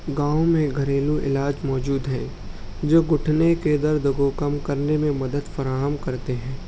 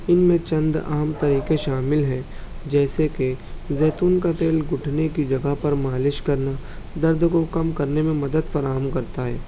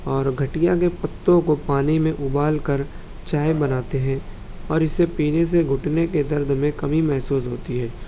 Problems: constant background noise